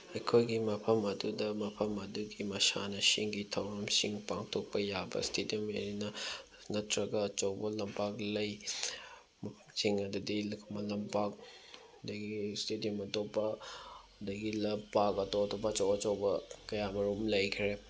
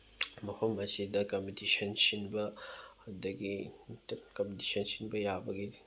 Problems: background sounds at intervals, background conversations at intervals